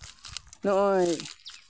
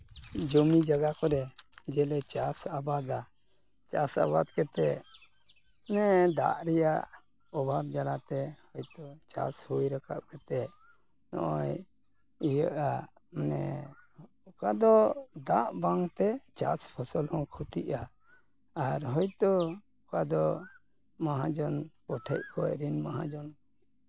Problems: background sounds at intervals